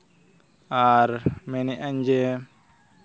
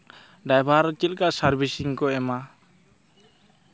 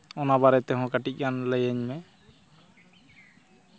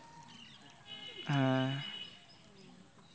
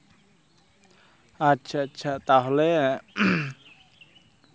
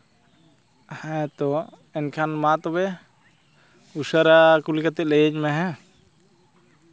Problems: constant background noise, continuous background conversations